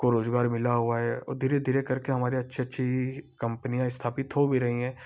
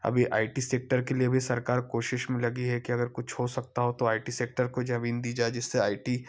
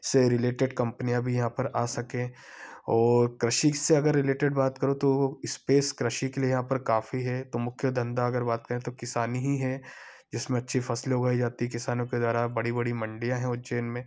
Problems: background sounds at intervals